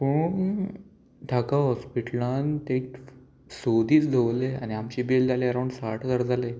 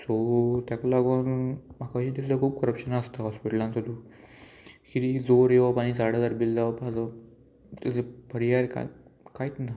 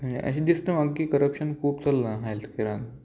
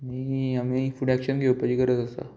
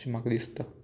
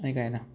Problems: constant background noise, background conversations at intervals